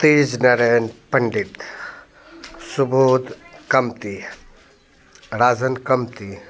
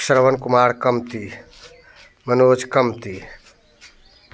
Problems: background sounds at intervals